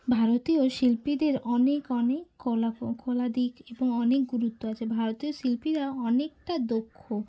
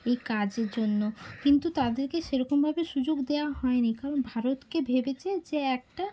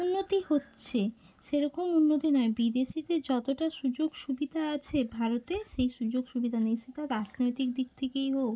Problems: constant background noise